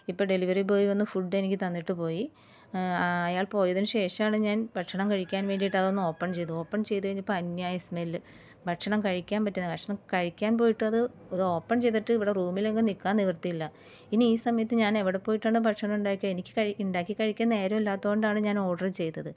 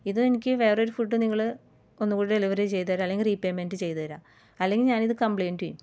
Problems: background sounds at intervals